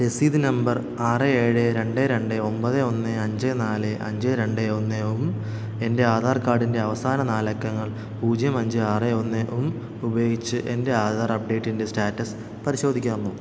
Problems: constant background noise